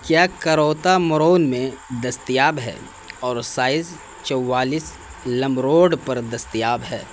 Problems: constant background noise